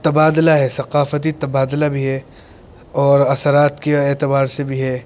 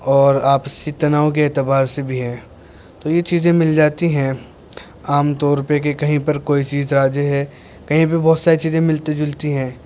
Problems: constant background noise